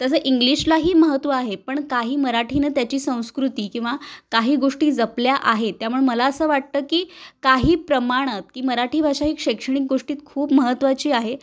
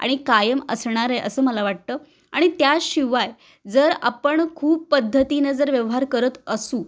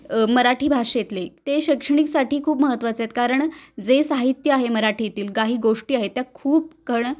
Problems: none marked